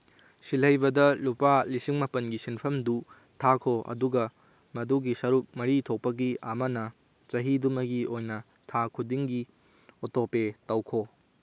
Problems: none marked